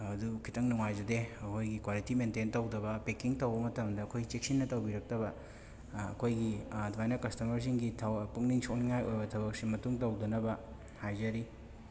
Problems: background sounds at intervals, background conversations at intervals